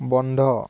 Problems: background sounds at intervals